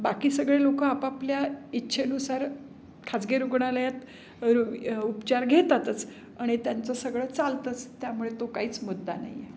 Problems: background sounds at intervals